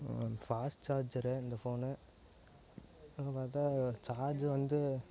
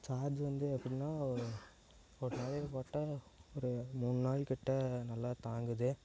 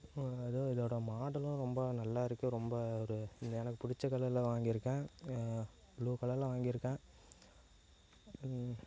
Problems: low volume